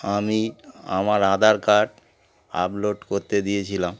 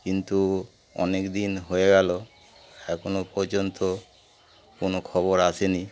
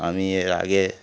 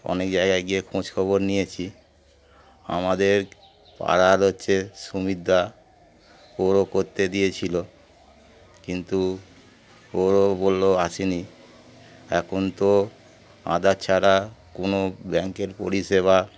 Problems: constant background noise